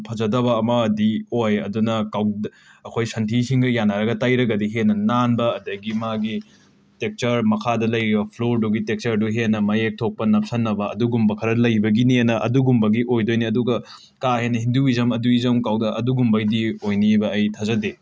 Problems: background sounds at intervals